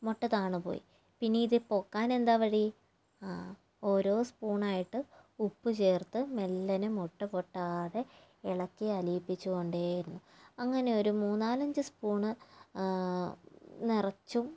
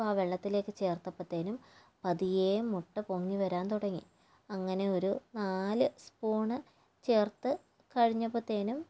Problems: low volume